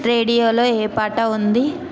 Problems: continuous background conversations